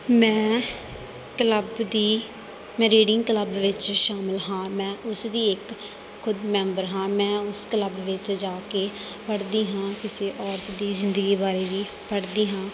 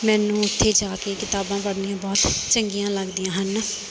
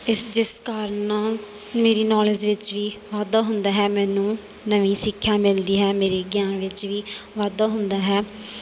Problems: none marked